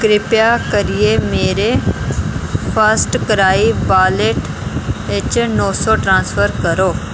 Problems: constant background noise